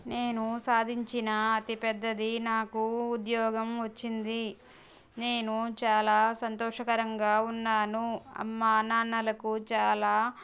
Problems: none marked